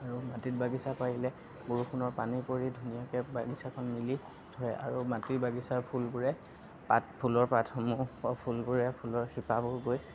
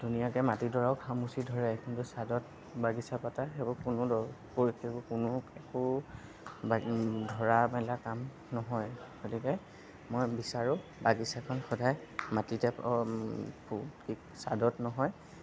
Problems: none marked